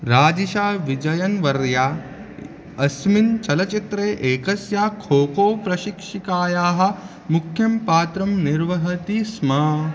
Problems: constant background noise